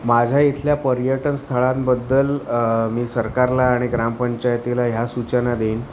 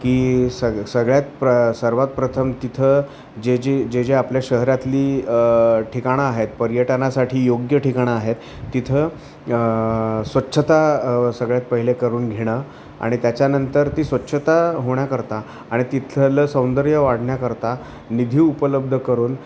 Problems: constant background noise, continuous background conversations